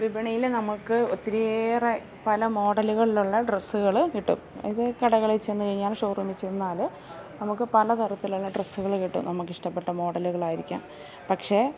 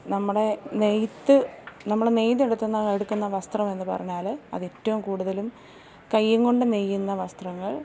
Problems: none marked